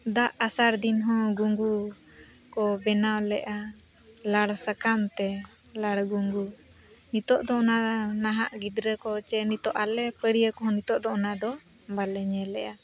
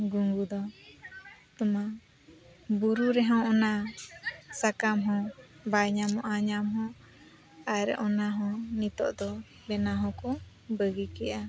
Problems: constant background noise, continuous background conversations